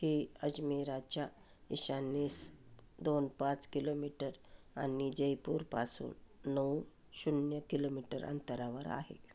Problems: none marked